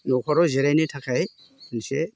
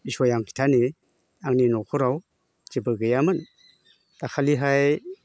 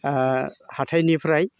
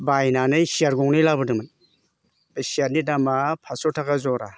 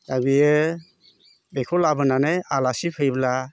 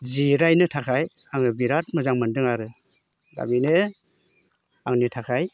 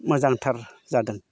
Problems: constant background noise